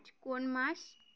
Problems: constant background noise